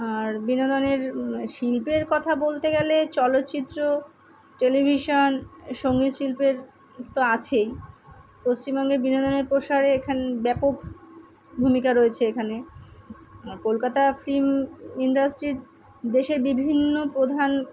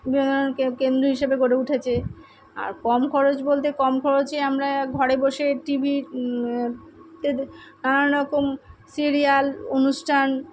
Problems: background sounds at intervals, background conversations at intervals